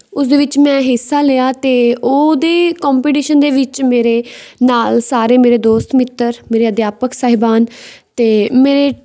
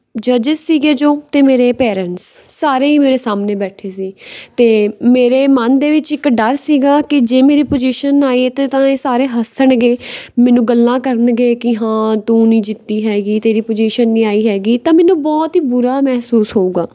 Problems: background sounds at intervals